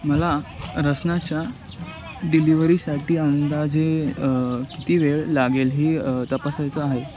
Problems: constant background noise, background conversations at intervals